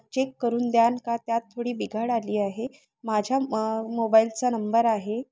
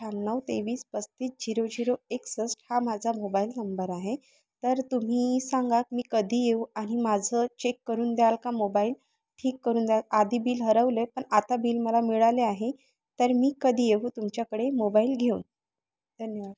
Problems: background sounds at intervals